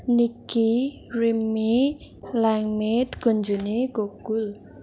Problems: constant background noise